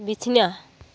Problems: none marked